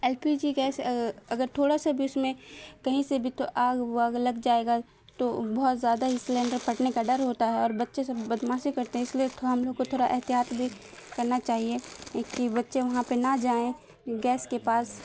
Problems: constant background noise